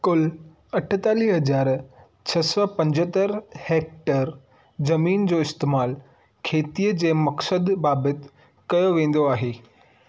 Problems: none marked